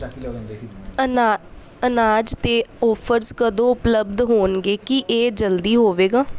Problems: background conversations at intervals